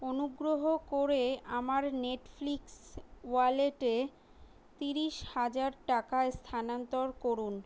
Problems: none marked